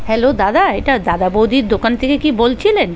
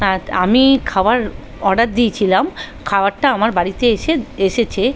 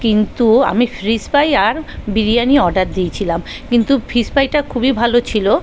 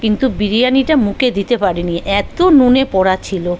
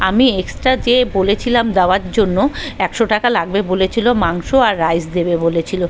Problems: background conversations at intervals